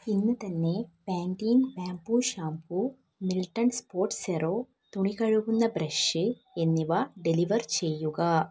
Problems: low volume